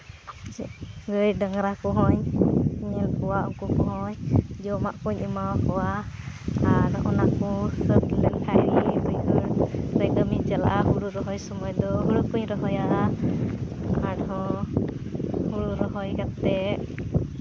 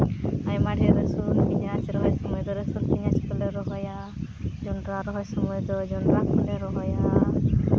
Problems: constant background noise